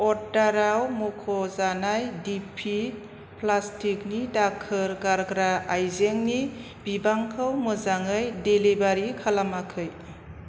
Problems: constant background noise